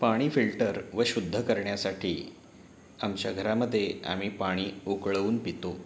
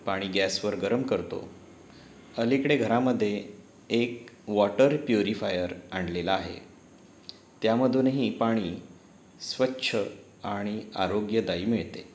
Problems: constant background noise